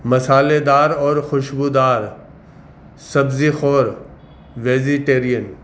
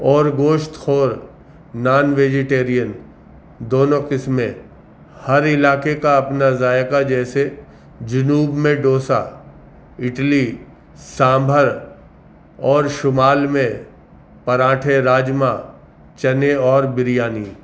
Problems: constant background noise